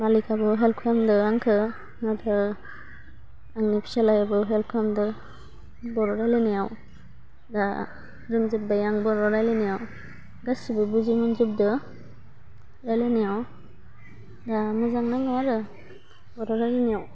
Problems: constant background noise